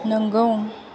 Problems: none marked